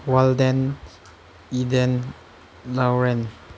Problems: none marked